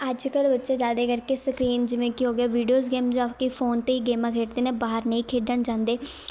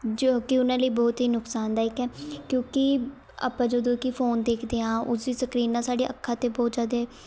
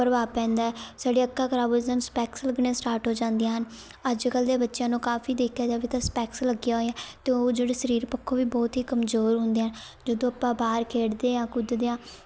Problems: constant background noise, background conversations at intervals